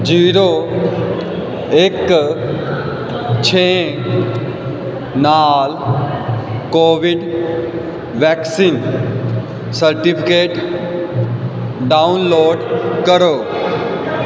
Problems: constant background noise